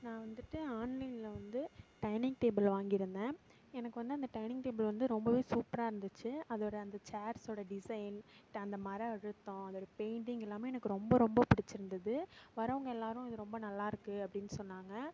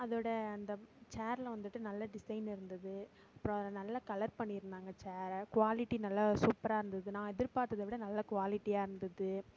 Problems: none marked